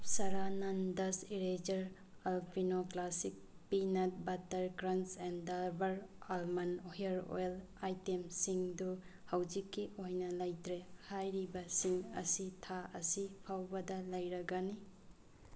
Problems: background sounds at intervals